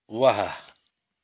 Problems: none marked